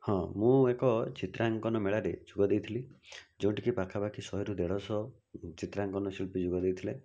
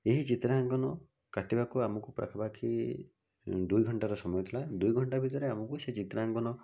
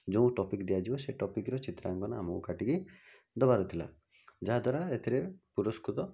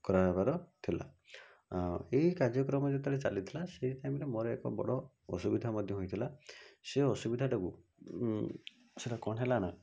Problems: none marked